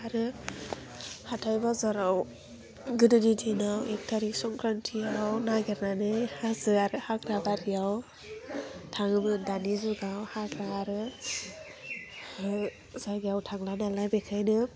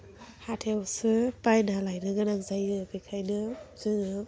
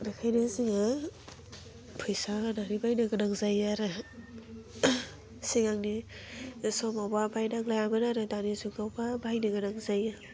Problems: constant background noise